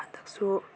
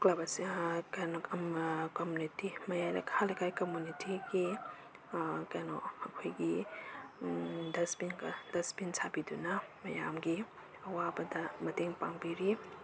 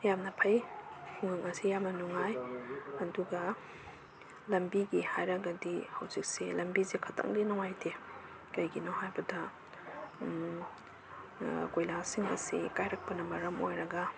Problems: background sounds at intervals